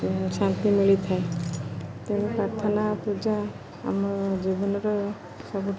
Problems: constant background noise, background conversations at intervals